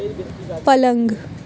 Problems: constant background noise